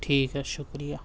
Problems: constant background noise